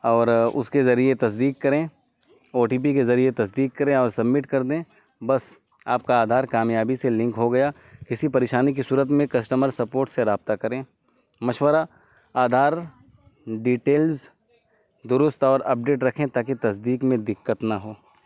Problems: constant background noise